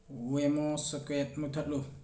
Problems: none marked